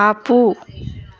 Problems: none marked